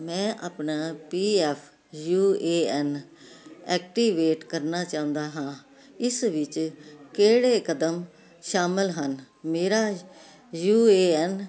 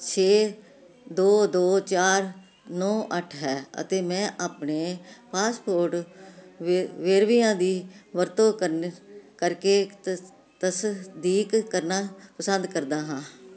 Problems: constant background noise